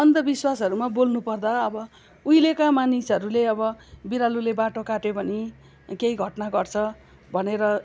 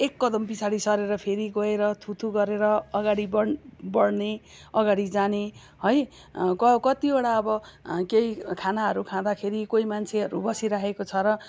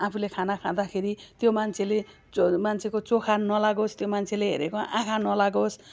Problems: background sounds at intervals